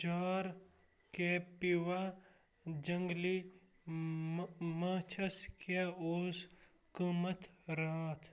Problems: constant background noise